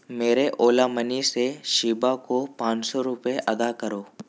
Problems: none marked